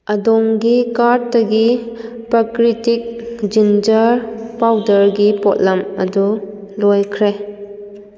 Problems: echo